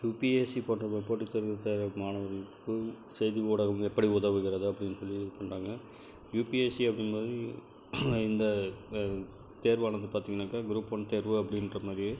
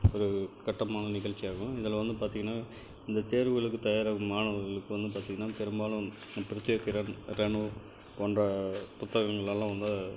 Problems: none marked